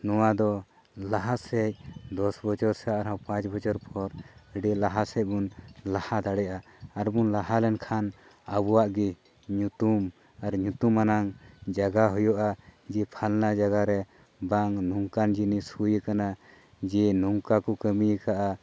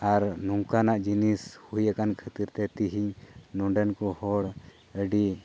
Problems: none marked